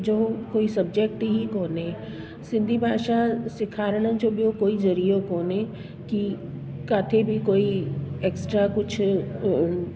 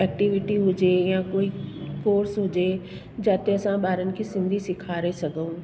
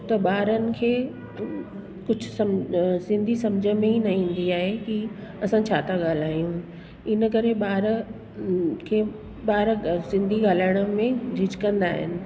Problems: constant background noise, echo